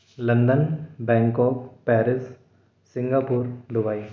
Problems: constant background noise, echo